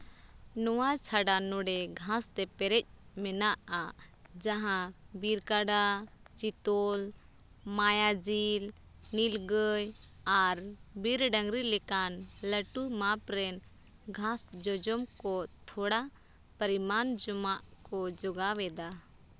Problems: none marked